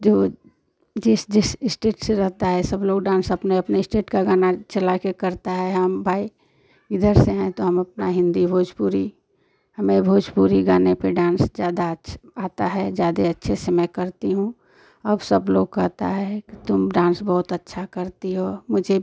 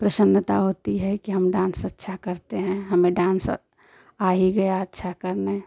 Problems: constant background noise